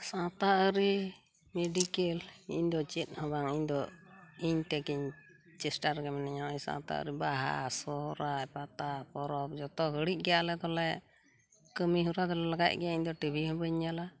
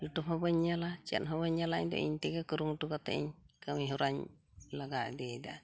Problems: none marked